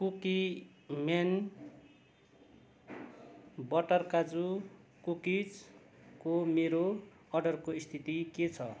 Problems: none marked